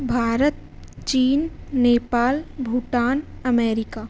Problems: none marked